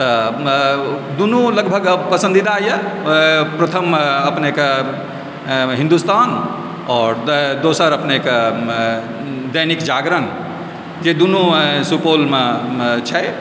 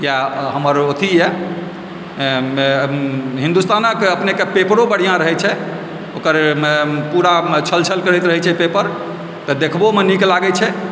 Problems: constant background noise